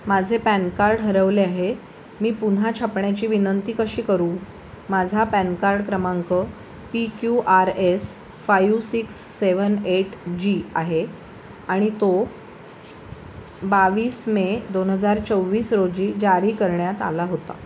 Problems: constant background noise